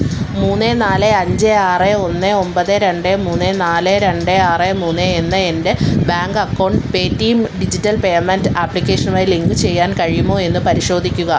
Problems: constant background noise